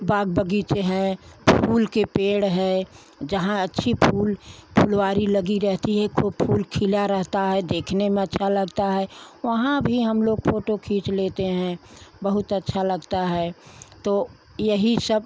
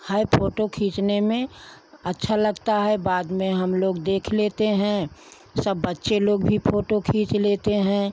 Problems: none marked